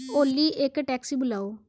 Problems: background sounds at intervals